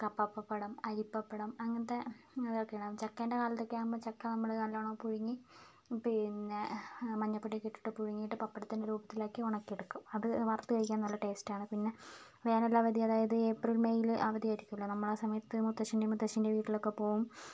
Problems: low volume